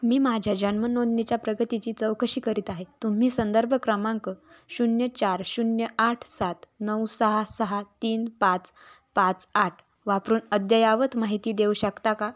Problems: background sounds at intervals